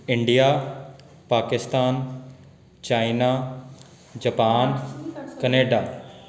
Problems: background conversations at intervals